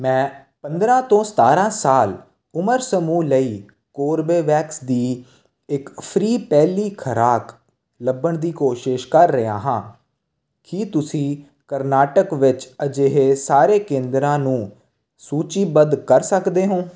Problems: constant background noise